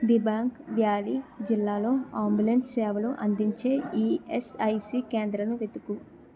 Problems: continuous background conversations